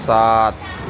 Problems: none marked